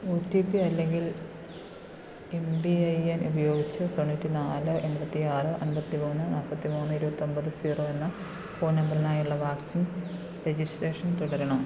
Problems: none marked